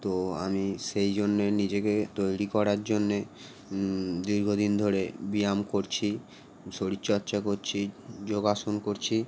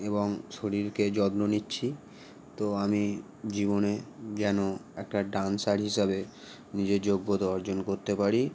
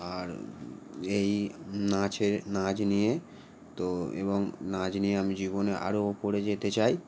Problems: constant background noise